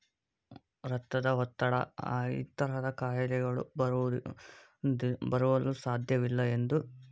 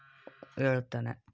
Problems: background sounds at intervals